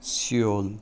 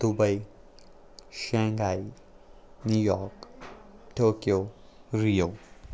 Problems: none marked